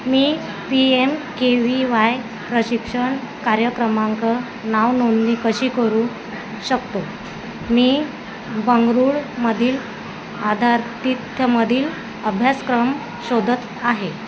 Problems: constant background noise, background conversations at intervals